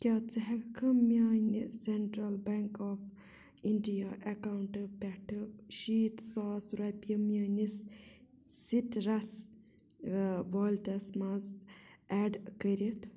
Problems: background sounds at intervals, low volume